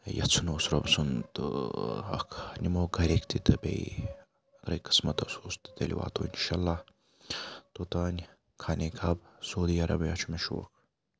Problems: none marked